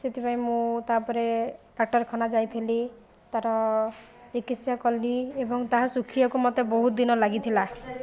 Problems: background sounds at intervals